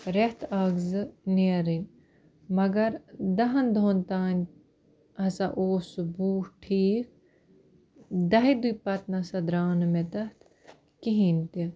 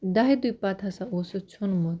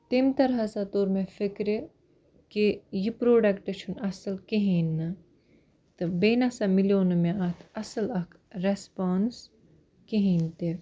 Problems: background sounds at intervals